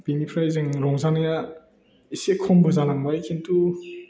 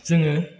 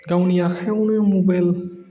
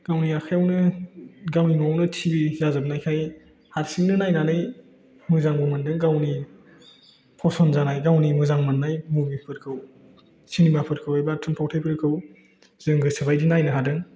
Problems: none marked